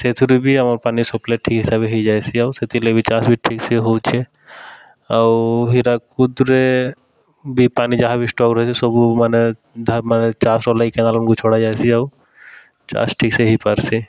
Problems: none marked